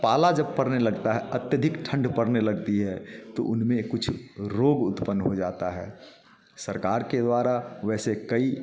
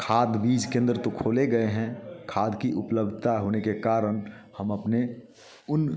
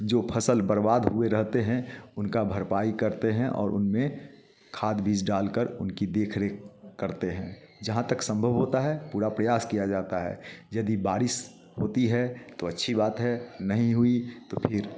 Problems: background sounds at intervals, background conversations at intervals